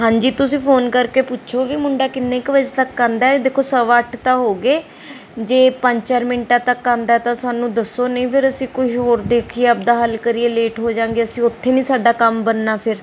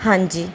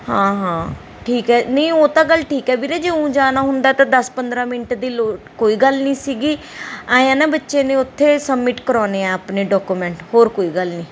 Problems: background sounds at intervals